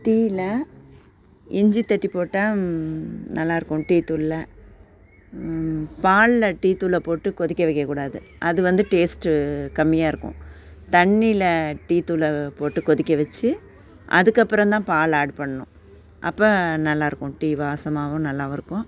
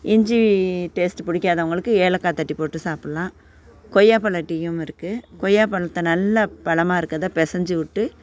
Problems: constant background noise